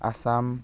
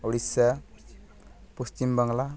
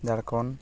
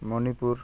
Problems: background sounds at intervals